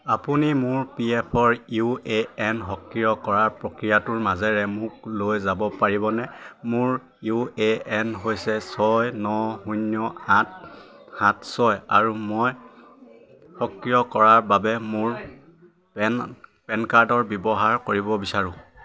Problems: constant background noise, continuous background conversations